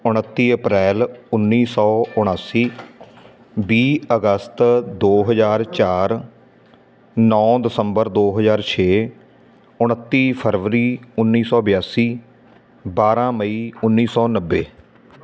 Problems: none marked